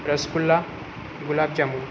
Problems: constant background noise